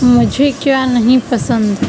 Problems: constant background noise